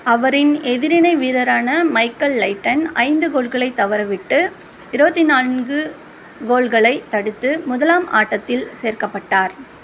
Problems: none marked